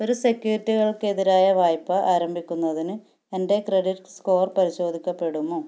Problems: none marked